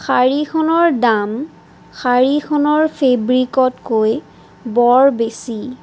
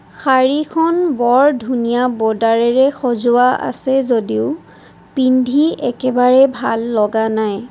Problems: constant background noise